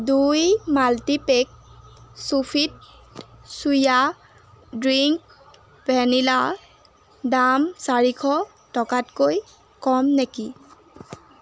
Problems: constant background noise